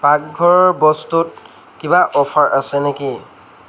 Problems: background conversations at intervals